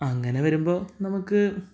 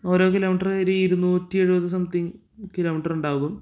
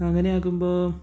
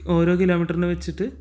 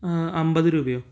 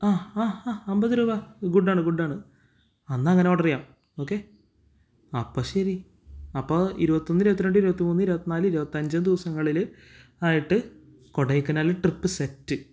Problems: none marked